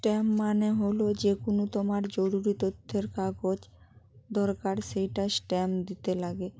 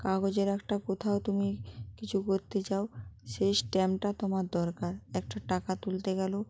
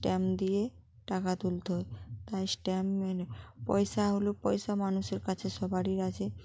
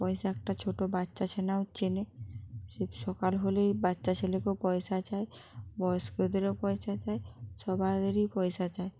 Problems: background sounds at intervals